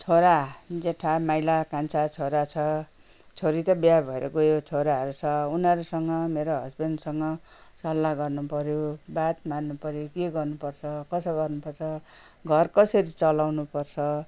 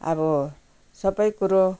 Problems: none marked